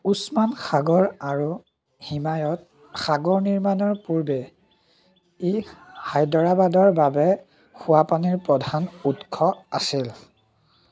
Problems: background sounds at intervals